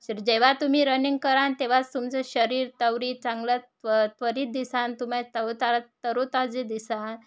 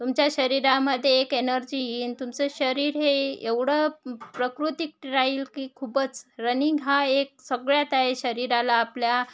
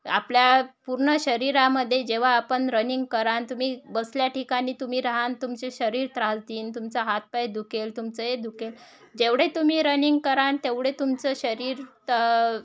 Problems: none marked